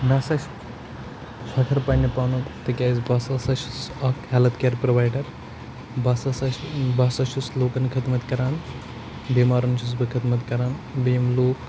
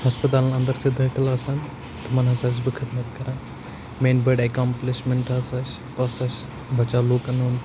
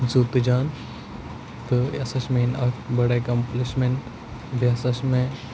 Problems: constant background noise